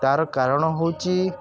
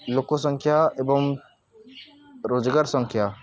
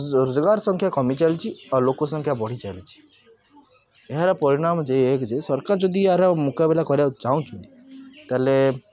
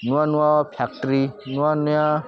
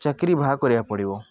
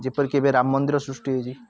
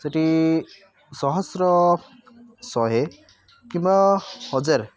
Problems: constant background noise, continuous background conversations